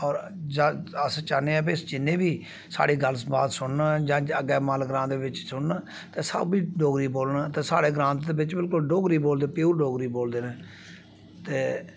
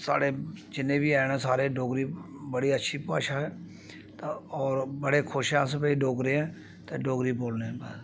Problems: background sounds at intervals